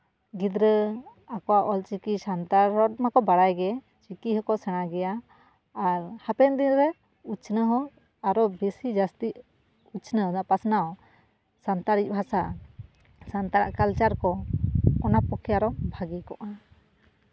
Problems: none marked